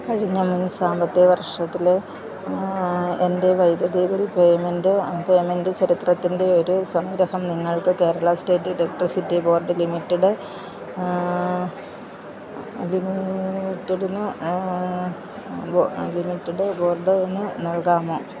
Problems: constant background noise, low volume